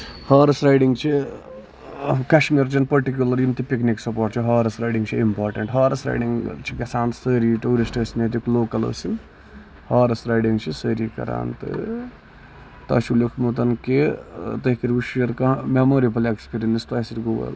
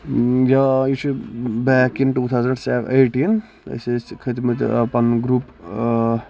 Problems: constant background noise